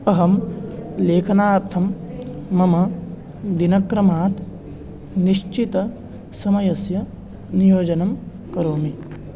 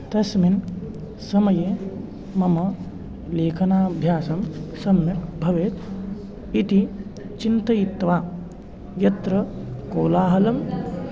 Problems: constant background noise, continuous background conversations